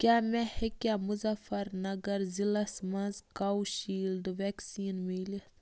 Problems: none marked